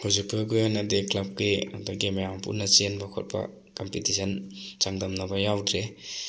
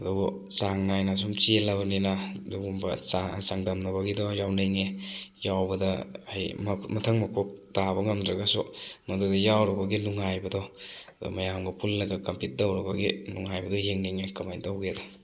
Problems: none marked